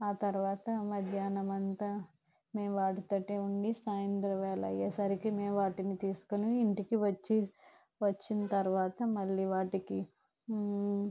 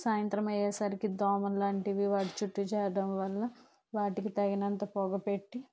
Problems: background sounds at intervals, low volume